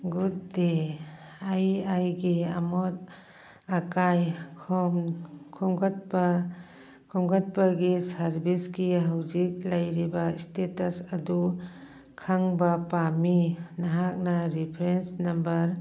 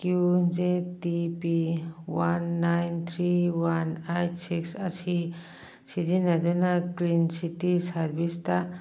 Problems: background sounds at intervals, background conversations at intervals